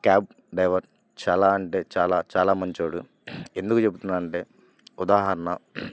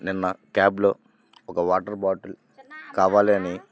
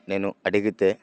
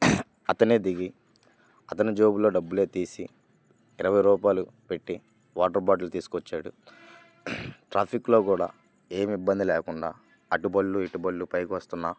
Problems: none marked